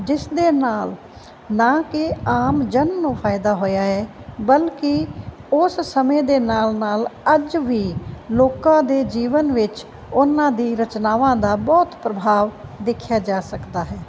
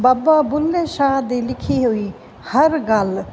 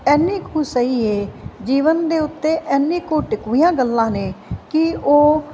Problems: constant background noise